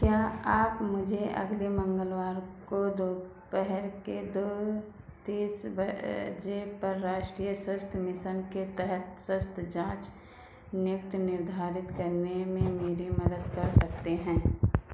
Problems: constant background noise